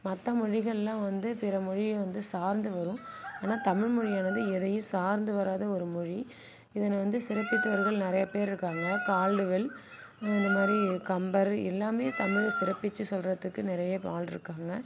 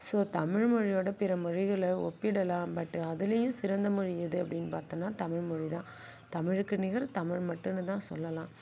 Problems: background sounds at intervals